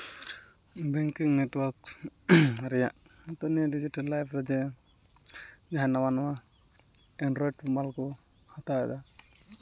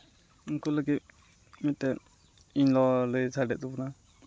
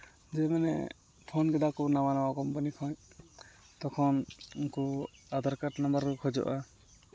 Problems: constant background noise